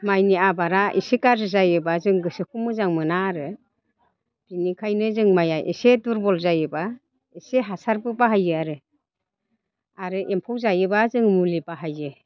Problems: constant background noise